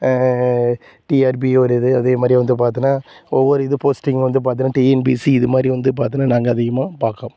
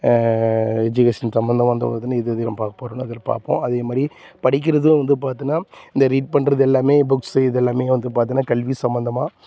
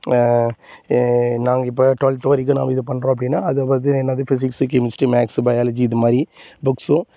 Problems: constant background noise